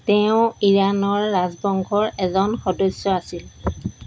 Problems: none marked